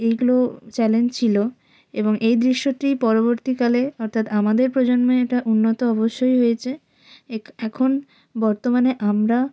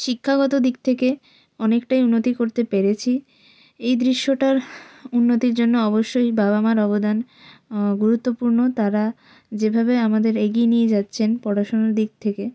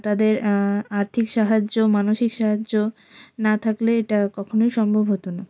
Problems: none marked